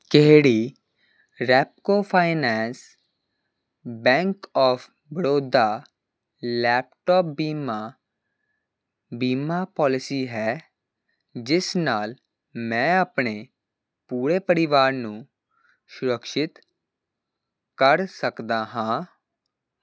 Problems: none marked